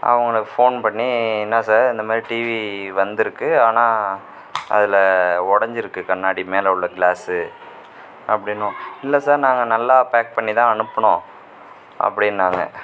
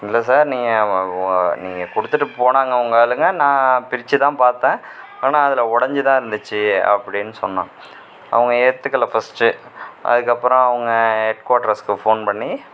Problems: constant background noise